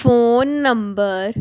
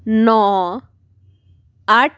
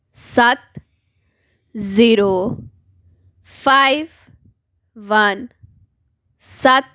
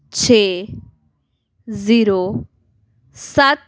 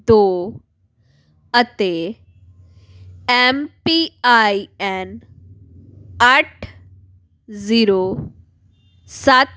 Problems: background sounds at intervals